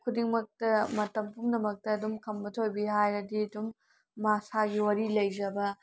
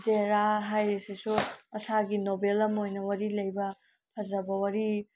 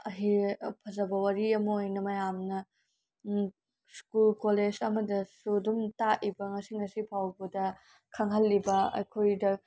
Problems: none marked